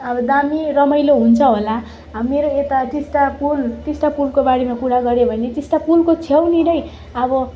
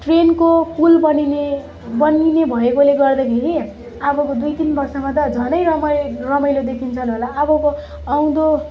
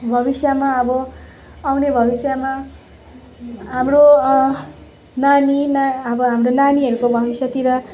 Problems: none marked